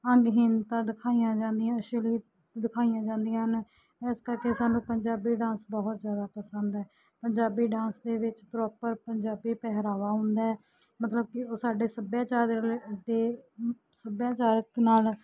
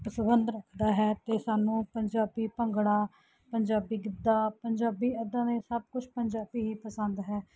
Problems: none marked